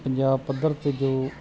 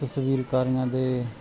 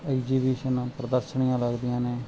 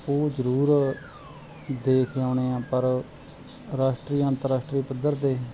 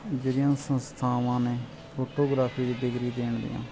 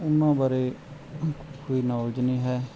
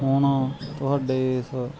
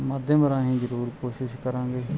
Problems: continuous background conversations